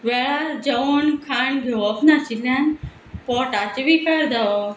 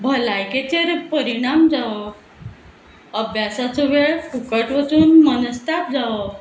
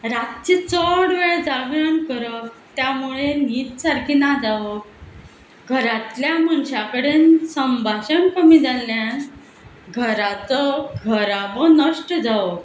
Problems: none marked